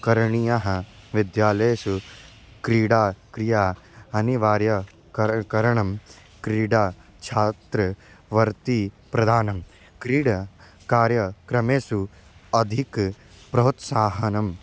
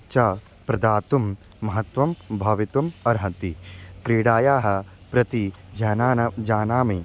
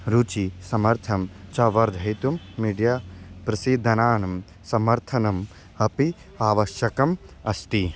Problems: none marked